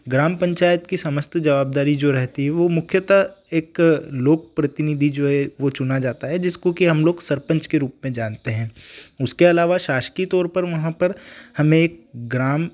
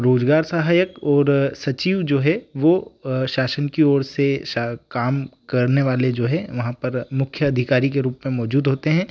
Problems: background sounds at intervals